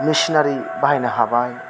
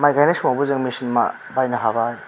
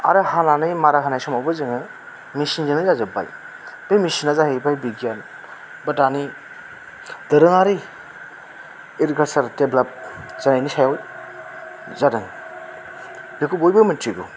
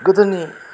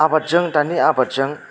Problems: constant background noise